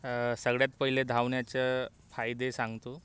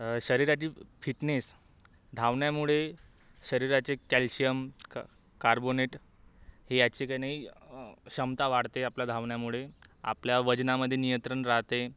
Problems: background sounds at intervals